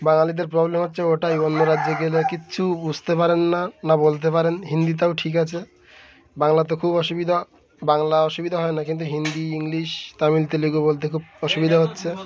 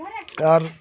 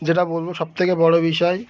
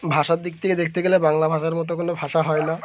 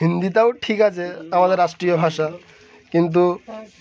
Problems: constant background noise